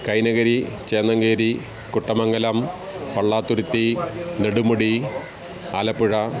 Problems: constant background noise